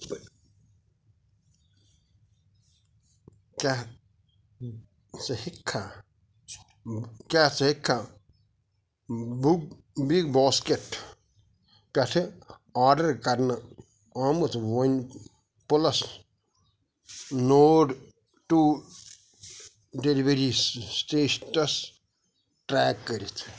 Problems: background sounds at intervals, background conversations at intervals